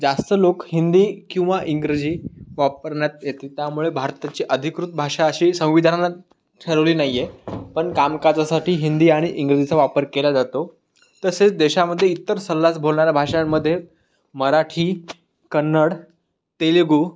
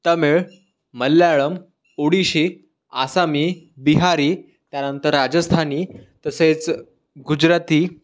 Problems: constant background noise